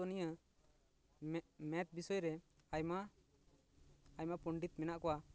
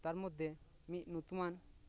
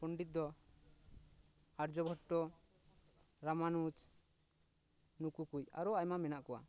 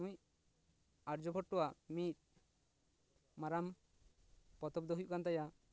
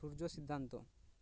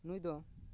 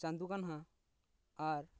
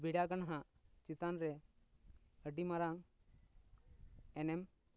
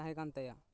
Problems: none marked